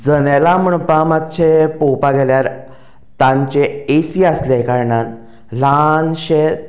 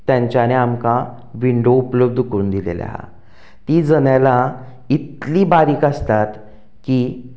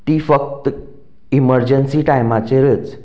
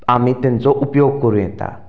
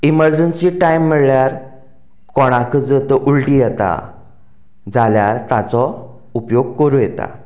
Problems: background sounds at intervals